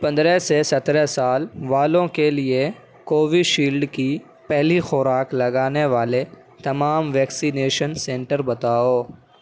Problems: none marked